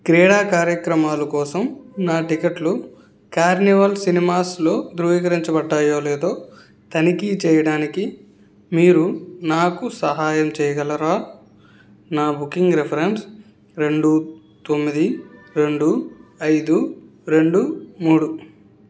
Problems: background sounds at intervals